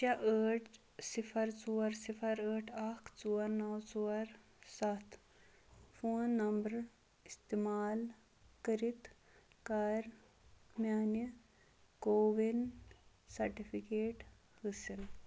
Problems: background sounds at intervals